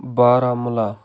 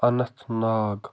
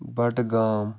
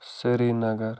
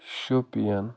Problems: background sounds at intervals